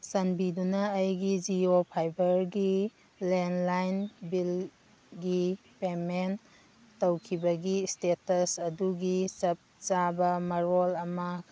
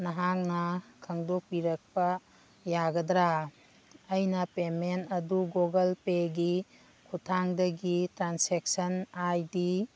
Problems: background sounds at intervals